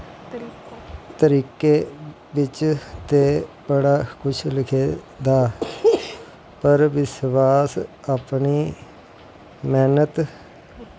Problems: constant background noise